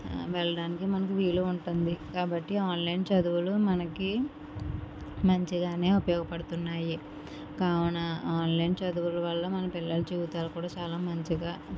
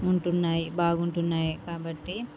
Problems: none marked